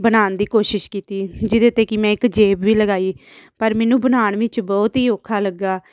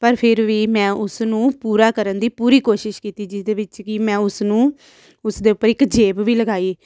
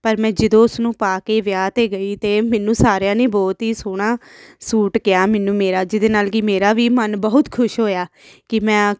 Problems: none marked